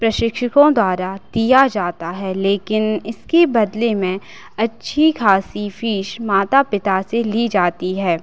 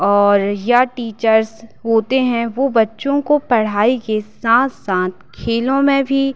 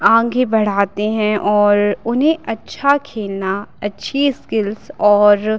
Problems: constant background noise